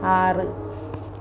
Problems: constant background noise